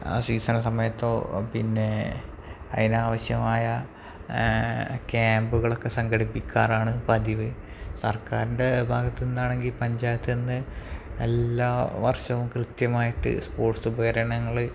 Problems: background sounds at intervals, low volume